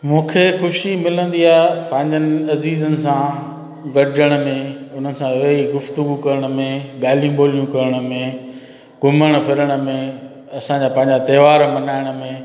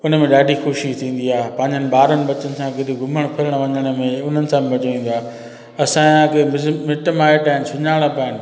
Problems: constant background noise, echo